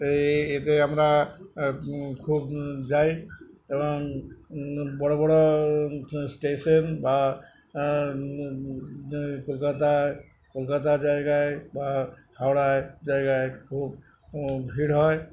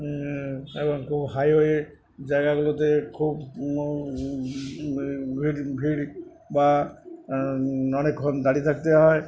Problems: none marked